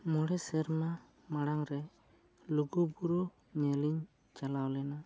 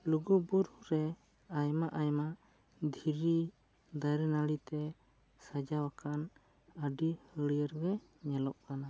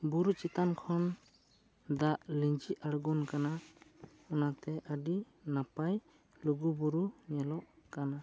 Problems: low volume